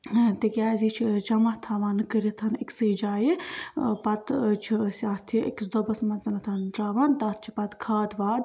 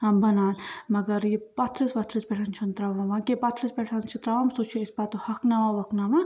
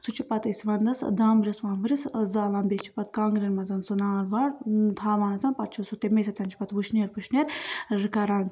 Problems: constant background noise